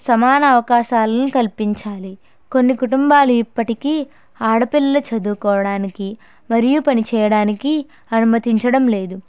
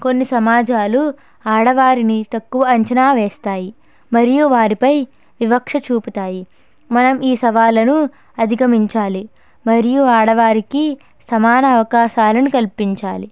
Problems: none marked